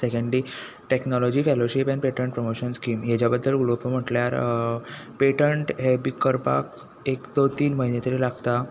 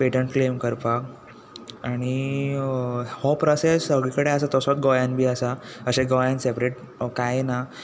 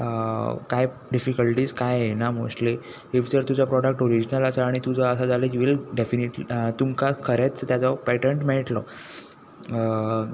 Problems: none marked